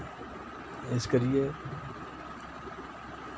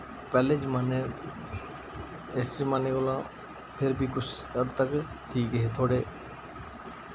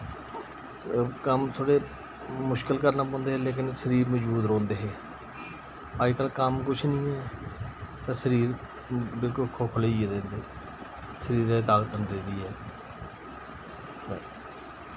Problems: constant background noise